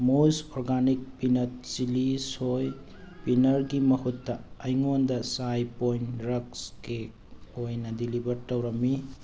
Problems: background sounds at intervals